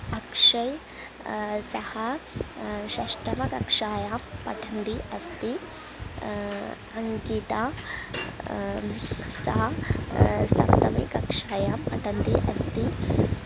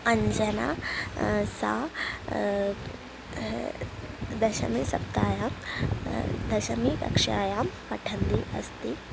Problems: constant background noise